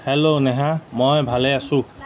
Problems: none marked